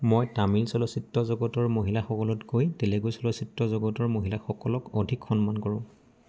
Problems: background sounds at intervals